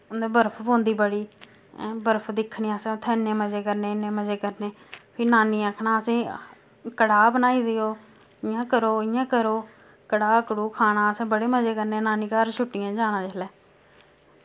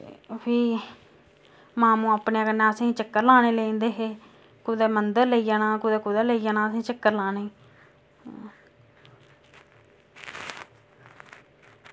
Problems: constant background noise